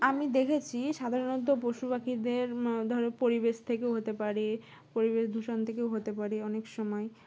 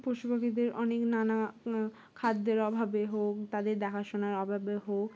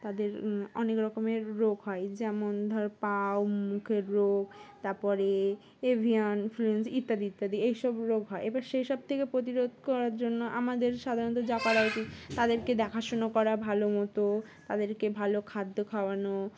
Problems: constant background noise